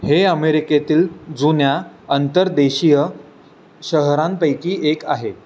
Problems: constant background noise